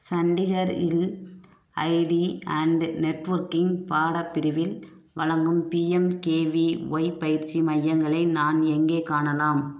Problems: none marked